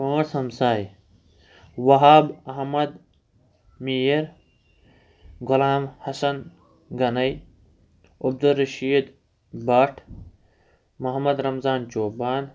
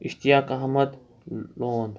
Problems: none marked